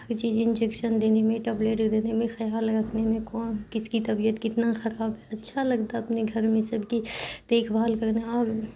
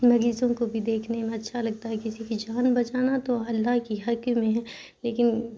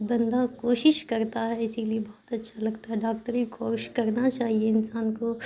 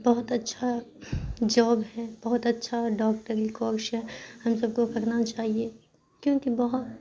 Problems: constant background noise